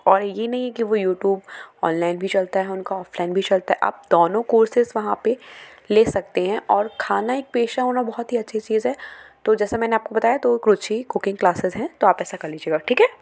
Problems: background sounds at intervals